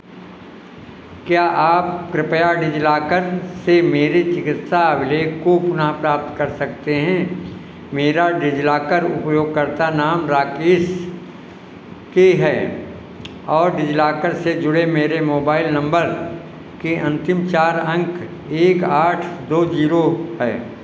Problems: constant background noise